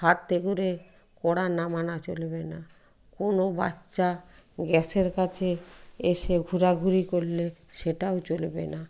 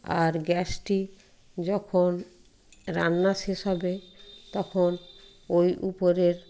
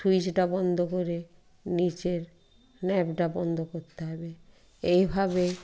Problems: background sounds at intervals